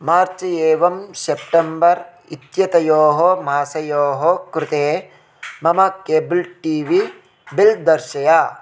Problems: constant background noise